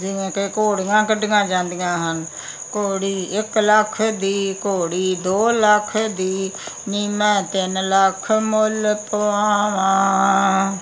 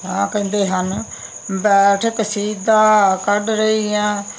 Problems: constant background noise